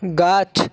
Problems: constant background noise, background conversations at intervals